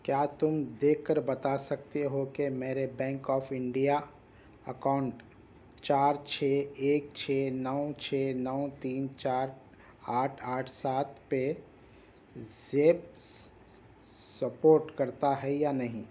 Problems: background sounds at intervals